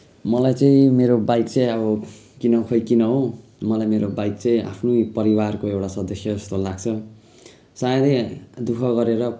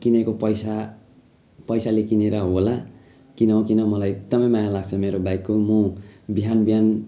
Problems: continuous background conversations